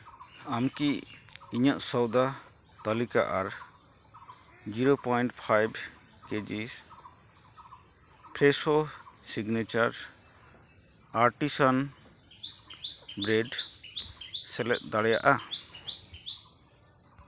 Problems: none marked